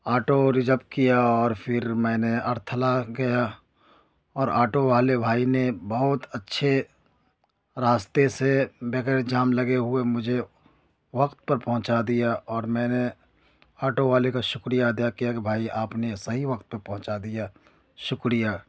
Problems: none marked